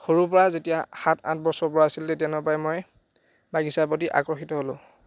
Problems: none marked